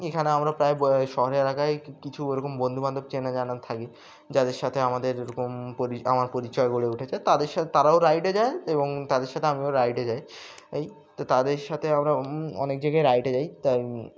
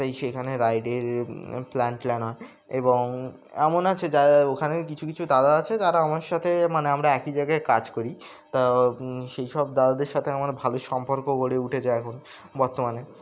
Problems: background sounds at intervals